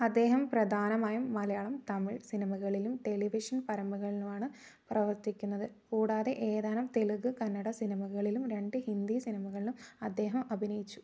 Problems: none marked